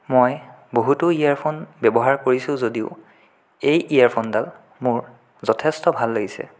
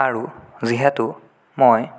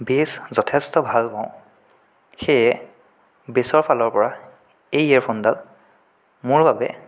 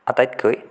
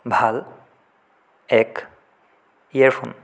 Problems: none marked